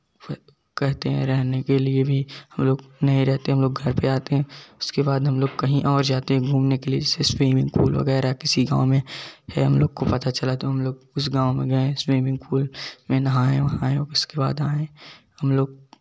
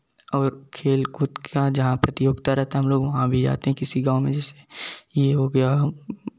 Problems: background sounds at intervals, continuous background conversations